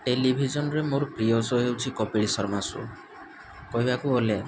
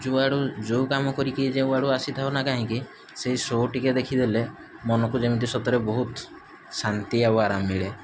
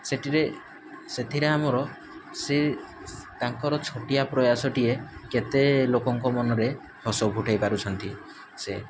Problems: none marked